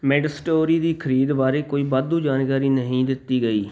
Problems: background sounds at intervals